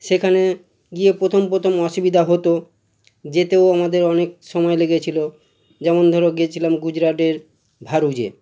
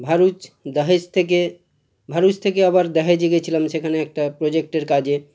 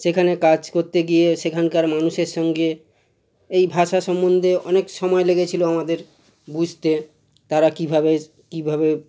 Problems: constant background noise